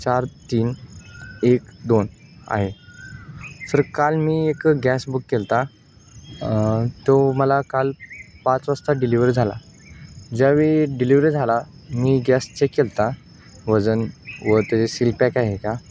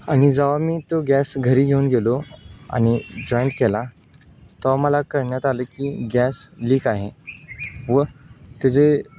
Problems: constant background noise